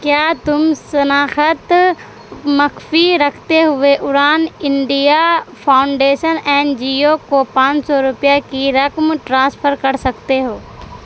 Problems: constant background noise